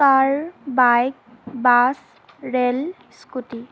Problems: constant background noise